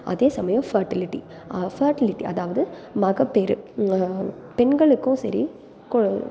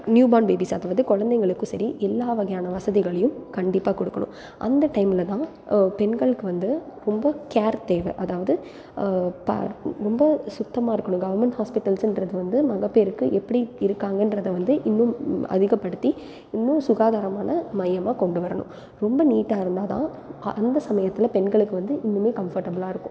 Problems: background sounds at intervals